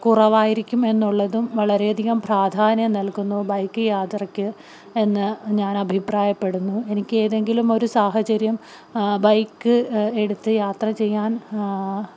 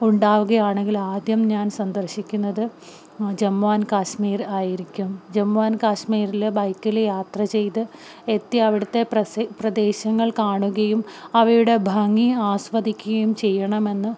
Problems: none marked